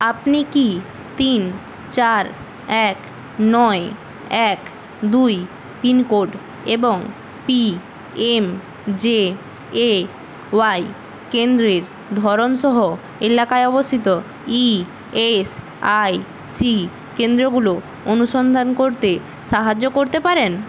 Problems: none marked